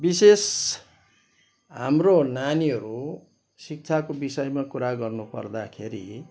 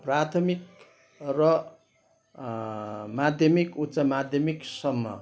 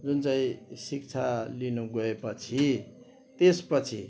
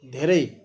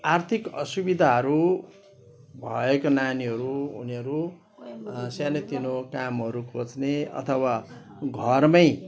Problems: background sounds at intervals